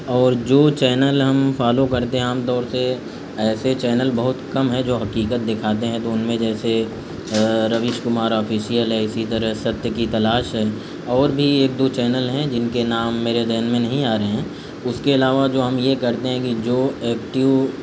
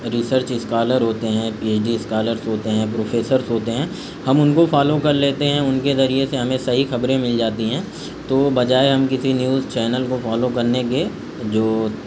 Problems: constant background noise